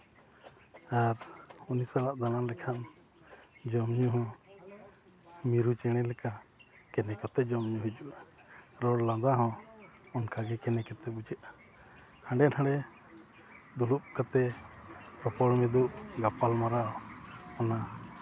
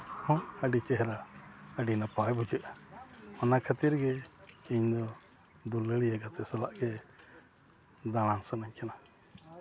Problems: constant background noise, background conversations at intervals